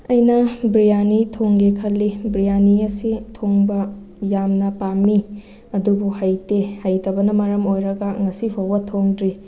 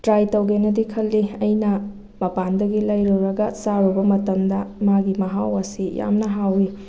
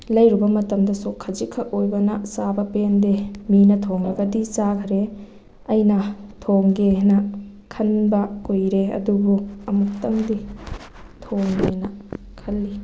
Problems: background sounds at intervals